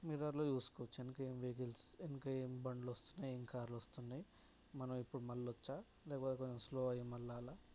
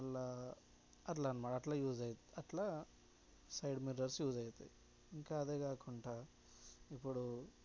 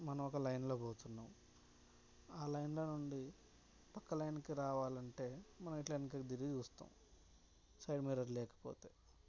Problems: background sounds at intervals, low volume